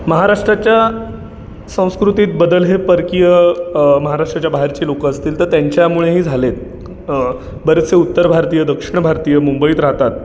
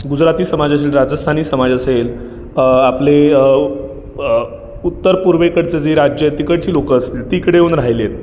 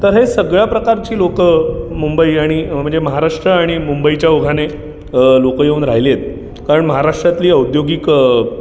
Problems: constant background noise, background conversations at intervals